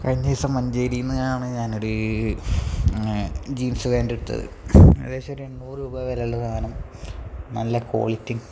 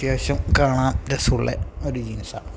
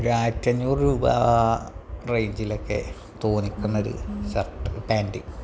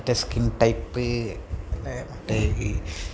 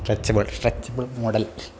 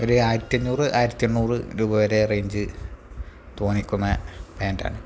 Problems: background sounds at intervals, low volume